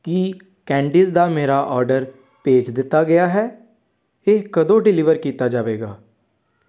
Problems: background conversations at intervals